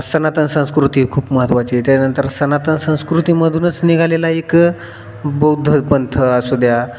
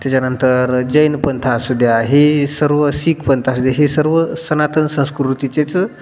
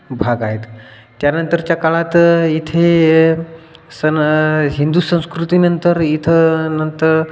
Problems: background sounds at intervals